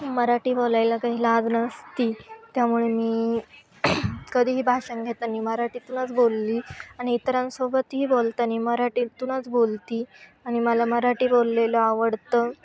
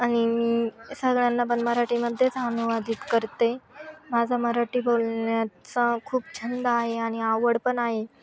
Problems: background sounds at intervals, continuous background conversations